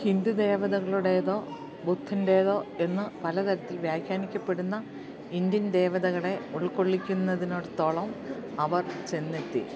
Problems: low volume